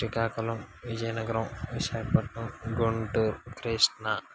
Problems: constant background noise, low volume